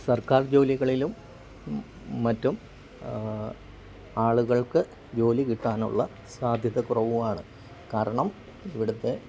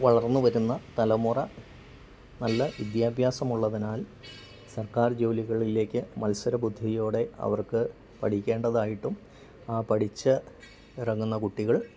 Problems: constant background noise